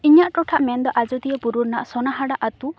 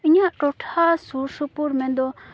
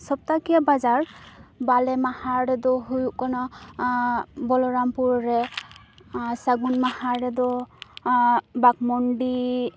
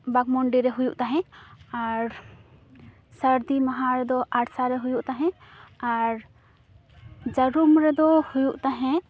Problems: constant background noise